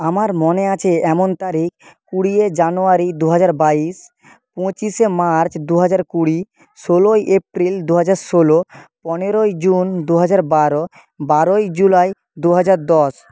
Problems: background sounds at intervals